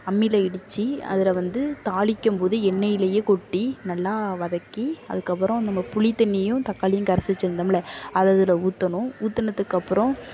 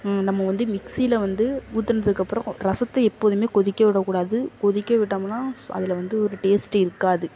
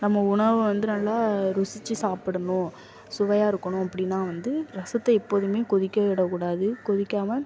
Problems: constant background noise, background conversations at intervals